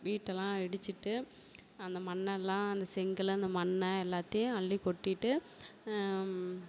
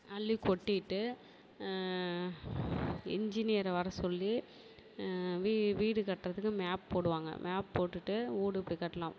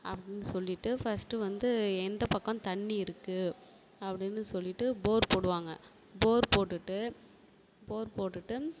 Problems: background sounds at intervals, low volume